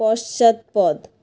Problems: constant background noise